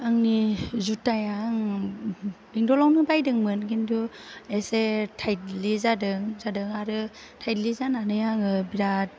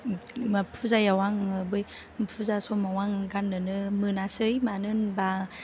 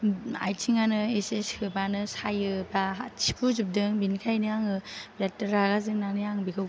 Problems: none marked